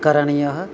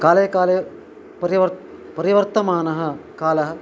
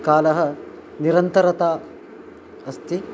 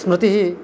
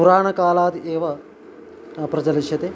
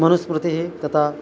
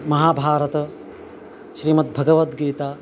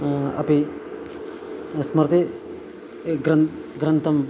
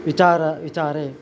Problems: constant background noise